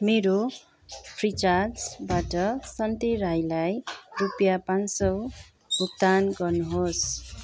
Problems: none marked